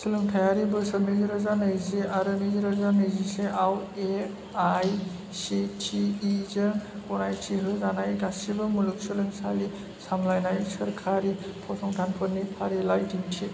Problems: constant background noise